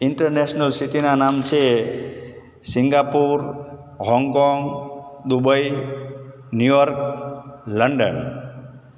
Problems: constant background noise, echo